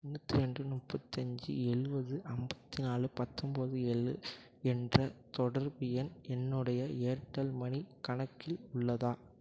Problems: low volume